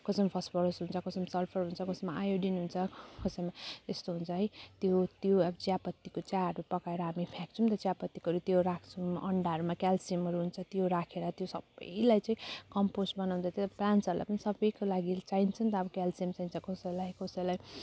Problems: none marked